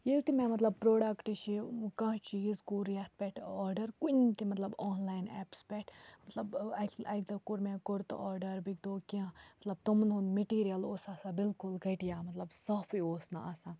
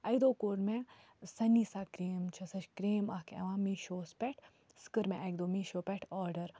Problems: constant background noise